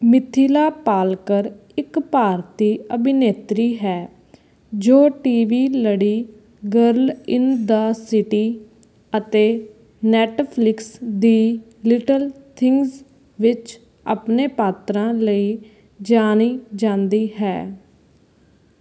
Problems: background sounds at intervals